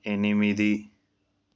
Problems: none marked